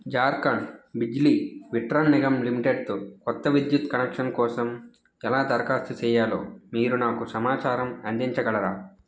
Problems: none marked